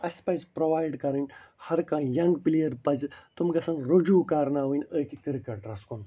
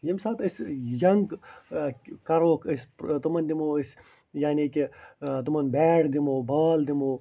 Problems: none marked